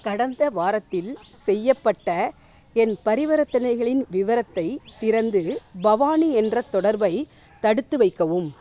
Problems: none marked